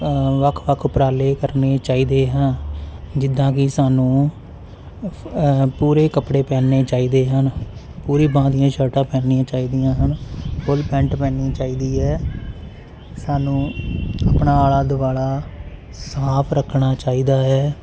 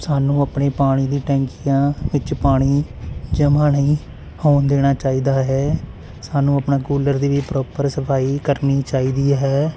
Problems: constant background noise